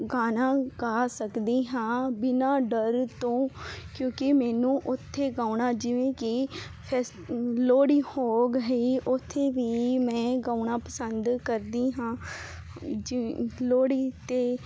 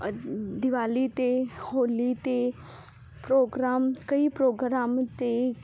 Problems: constant background noise